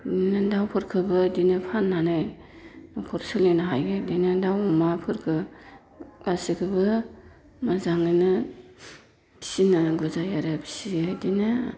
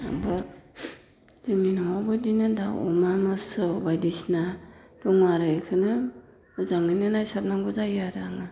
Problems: none marked